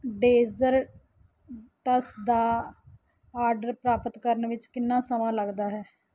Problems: none marked